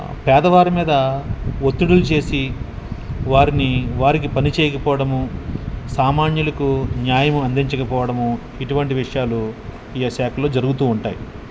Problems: none marked